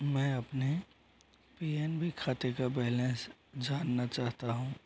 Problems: constant background noise, low volume